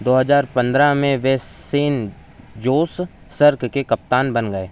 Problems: none marked